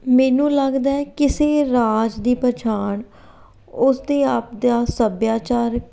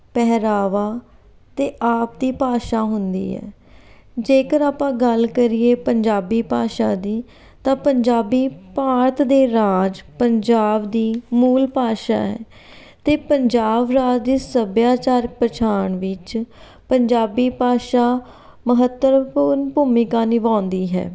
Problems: background sounds at intervals